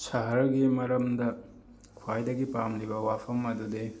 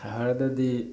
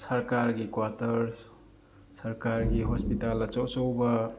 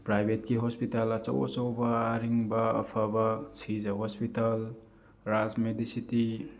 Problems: constant background noise, background conversations at intervals